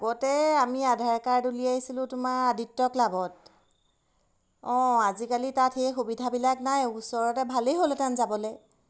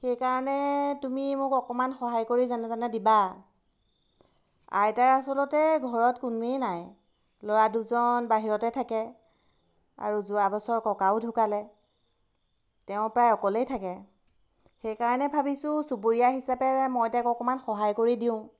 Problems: background sounds at intervals